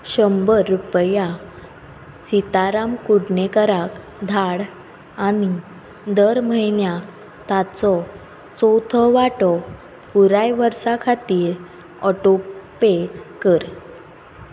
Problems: constant background noise